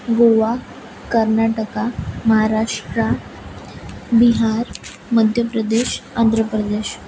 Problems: constant background noise